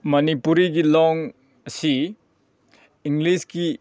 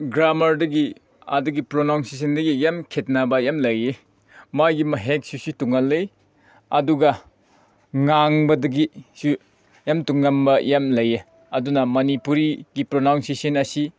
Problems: none marked